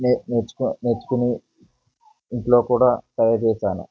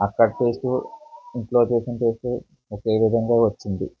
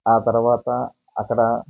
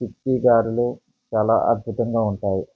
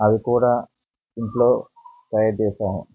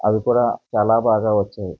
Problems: background conversations at intervals